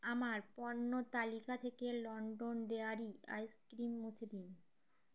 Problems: none marked